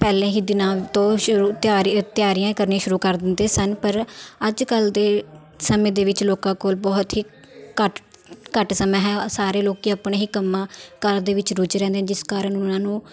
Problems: continuous background conversations